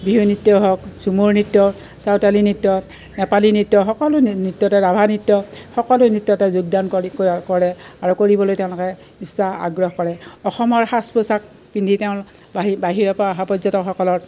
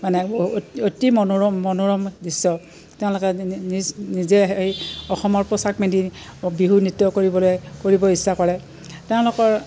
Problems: none marked